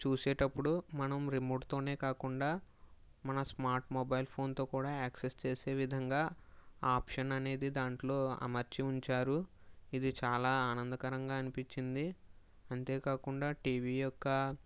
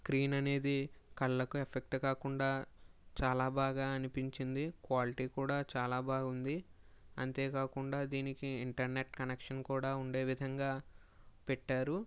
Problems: low volume